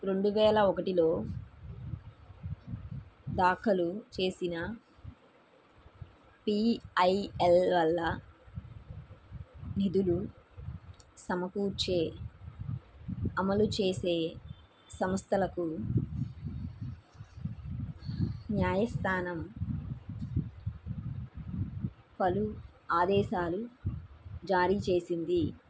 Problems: none marked